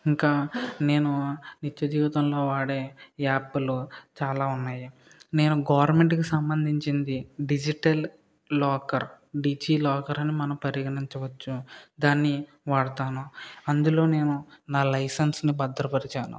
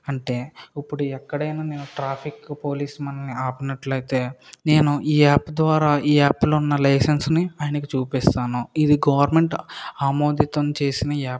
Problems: none marked